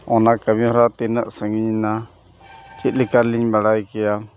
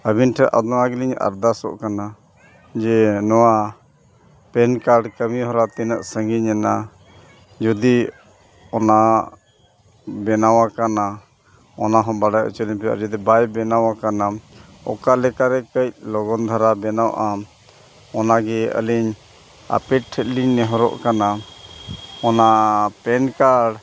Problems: none marked